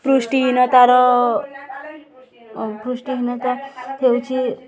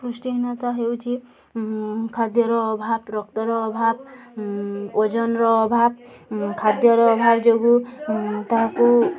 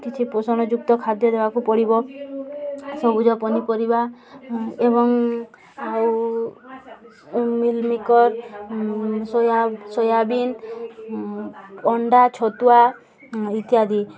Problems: none marked